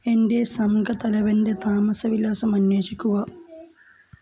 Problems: none marked